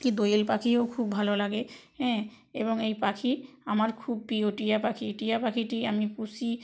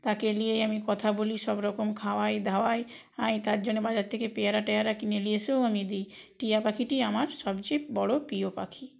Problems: background sounds at intervals, background conversations at intervals